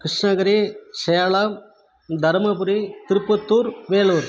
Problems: background conversations at intervals